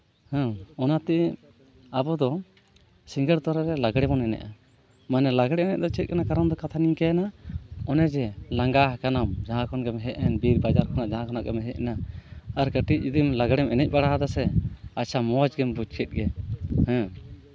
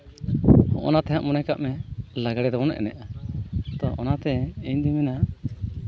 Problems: background sounds at intervals